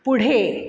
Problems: constant background noise